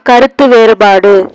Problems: constant background noise